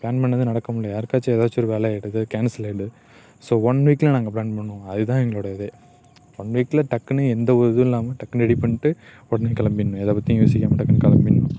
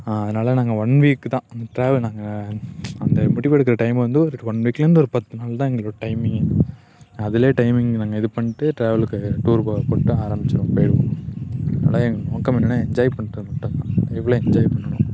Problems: none marked